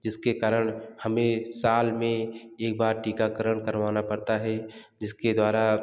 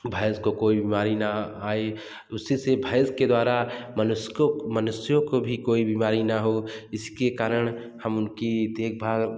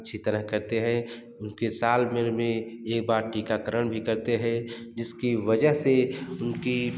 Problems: background sounds at intervals, echo